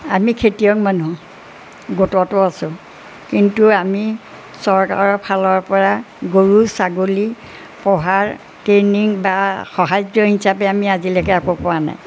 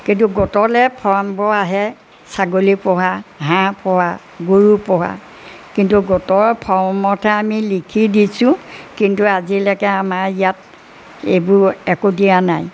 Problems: none marked